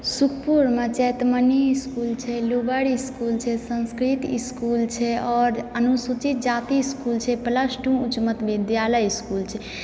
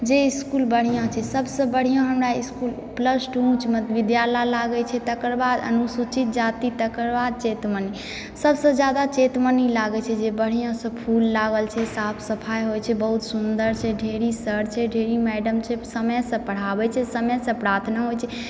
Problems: background sounds at intervals